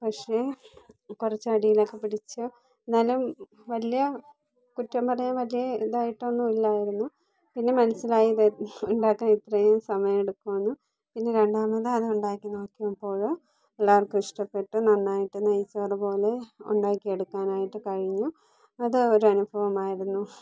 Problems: low volume